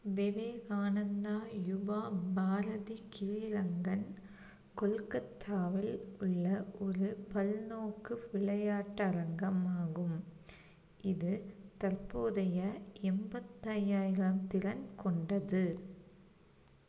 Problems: low volume